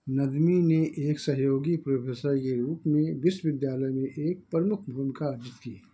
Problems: background sounds at intervals